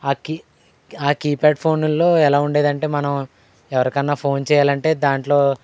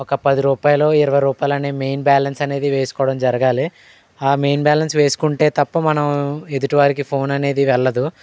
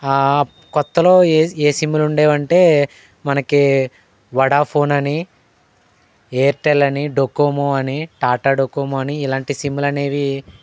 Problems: none marked